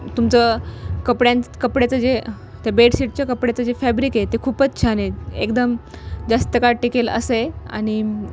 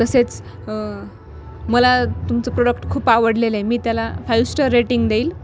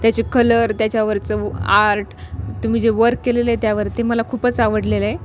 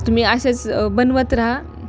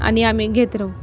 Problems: none marked